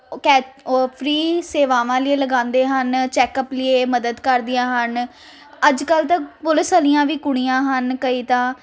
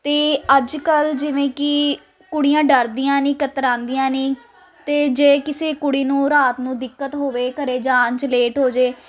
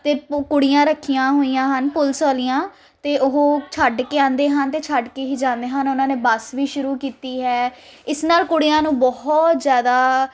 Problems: constant background noise